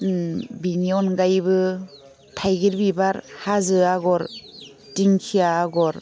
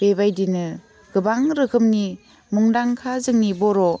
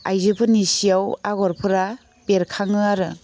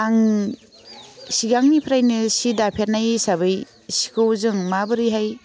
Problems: none marked